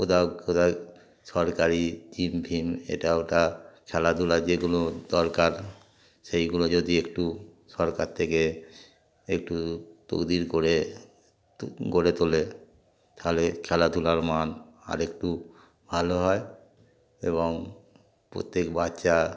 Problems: background sounds at intervals, background conversations at intervals